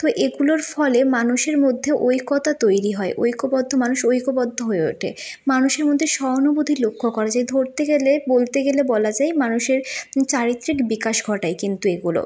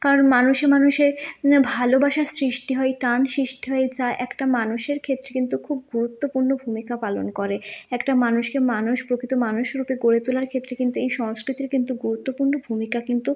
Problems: constant background noise